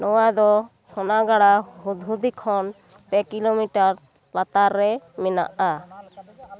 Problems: background conversations at intervals